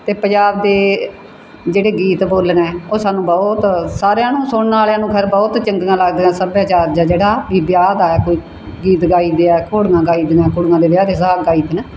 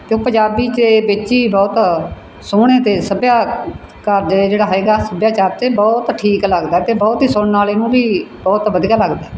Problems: background sounds at intervals